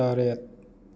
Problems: none marked